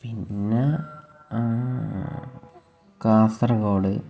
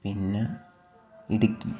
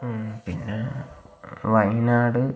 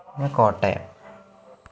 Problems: low volume